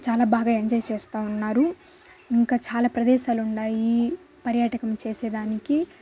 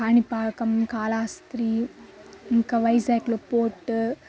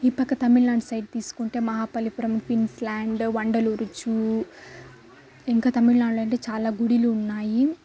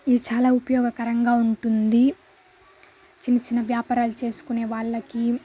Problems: constant background noise, background conversations at intervals